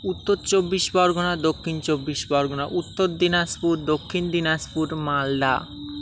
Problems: constant background noise